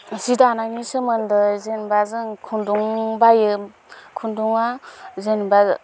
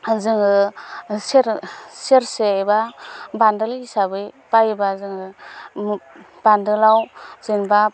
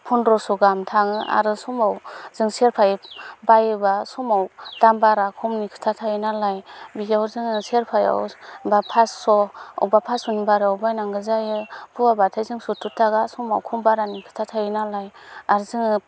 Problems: constant background noise